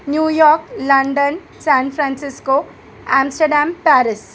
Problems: constant background noise